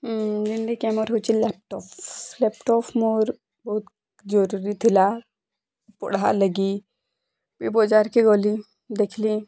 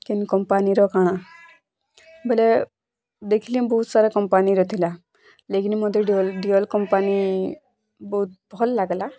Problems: constant background noise